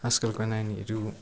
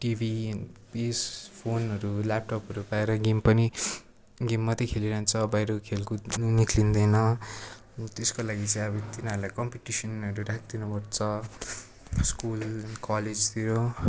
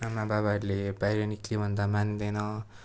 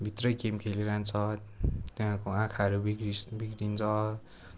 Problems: constant background noise